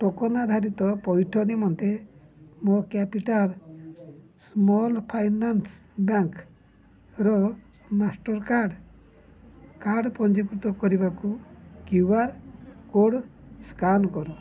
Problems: none marked